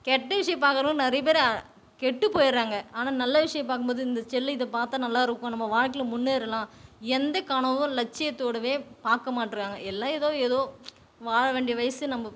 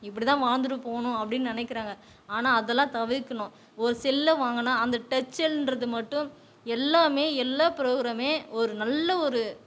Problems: background conversations at intervals